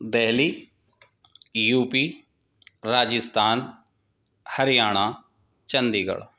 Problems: none marked